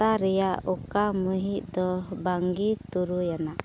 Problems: low volume